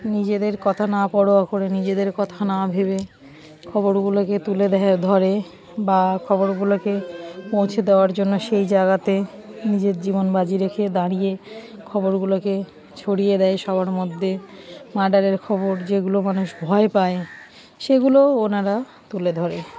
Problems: background sounds at intervals, background conversations at intervals